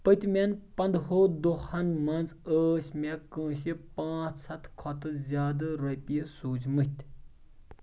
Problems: background sounds at intervals